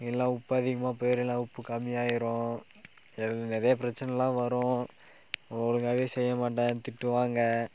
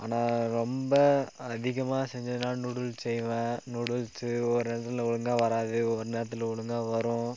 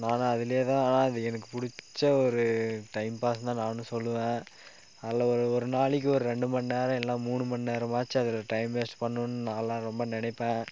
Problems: none marked